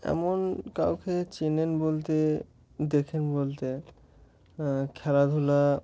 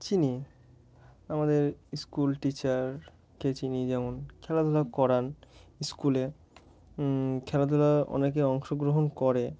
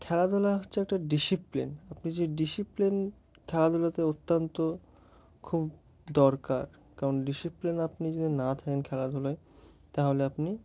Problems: background sounds at intervals